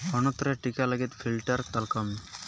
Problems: constant background noise